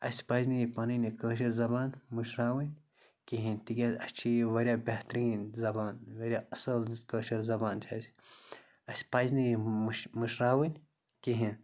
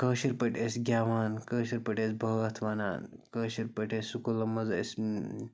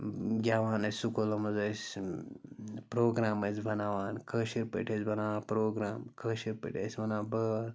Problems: constant background noise